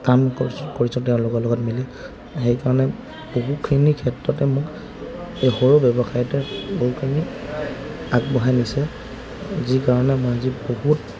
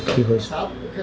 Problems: constant background noise, background conversations at intervals